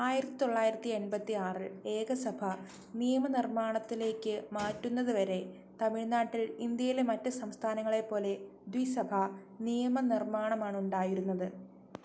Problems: none marked